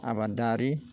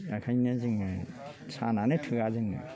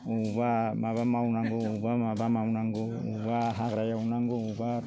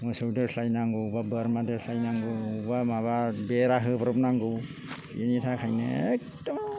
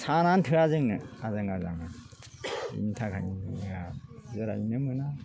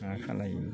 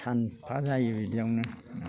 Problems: low volume